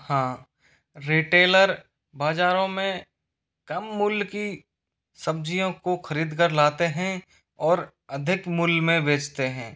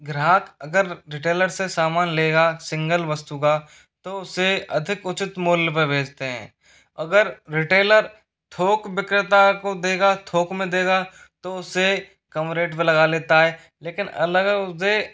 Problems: none marked